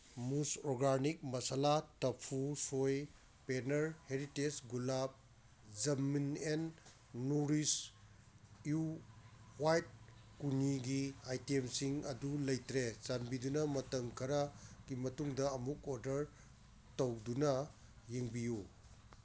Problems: constant background noise